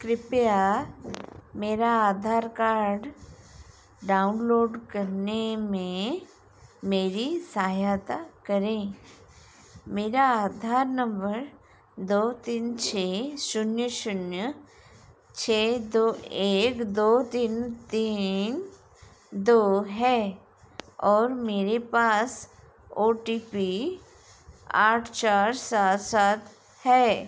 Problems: none marked